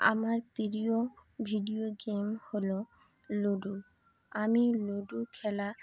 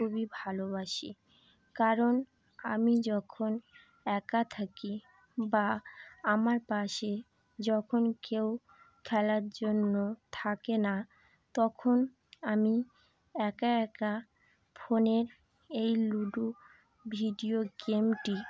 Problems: none marked